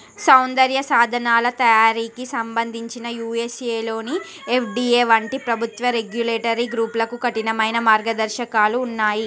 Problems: constant background noise, background conversations at intervals